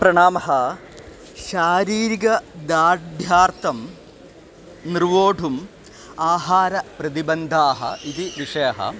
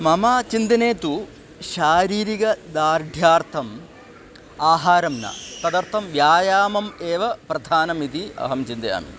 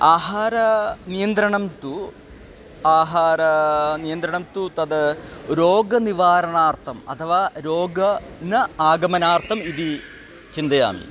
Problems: constant background noise, continuous background conversations